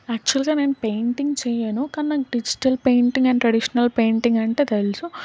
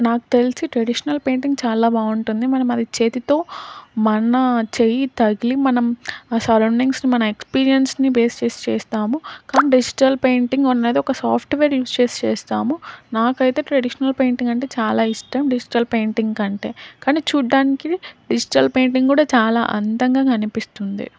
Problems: none marked